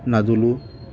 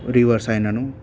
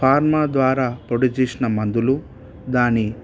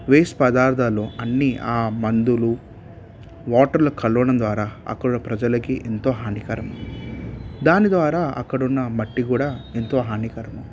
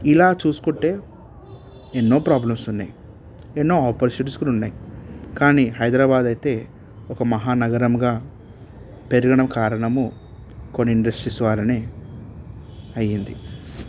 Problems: background sounds at intervals